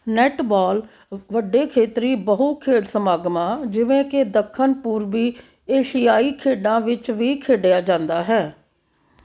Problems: background sounds at intervals